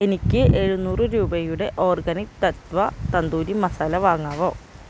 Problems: constant background noise